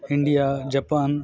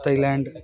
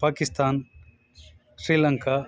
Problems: continuous background conversations